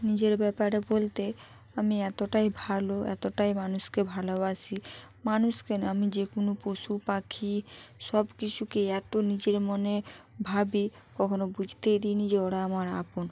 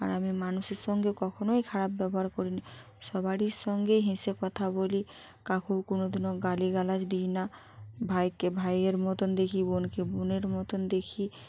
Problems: background sounds at intervals